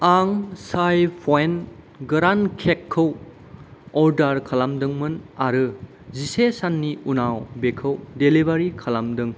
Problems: none marked